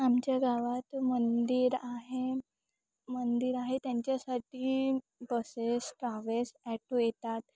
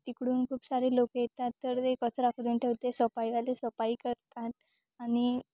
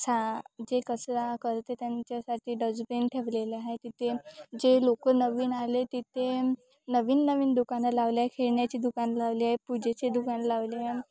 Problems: constant background noise, continuous background conversations